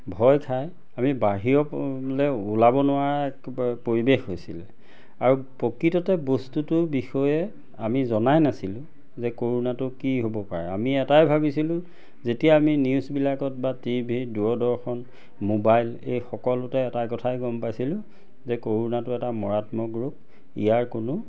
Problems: none marked